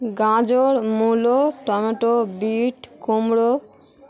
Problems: constant background noise